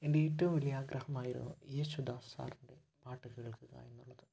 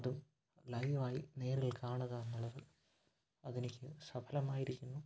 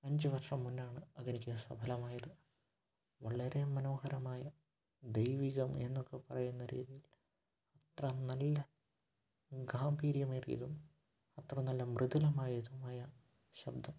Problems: background sounds at intervals, low volume